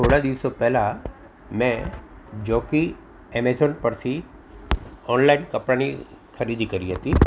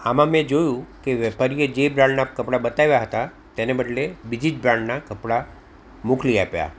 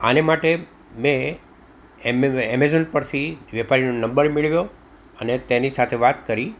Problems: none marked